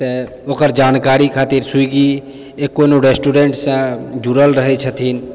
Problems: none marked